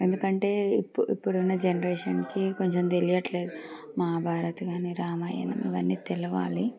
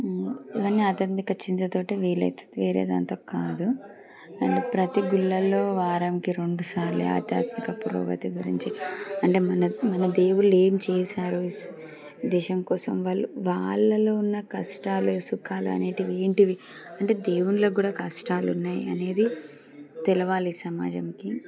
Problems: background sounds at intervals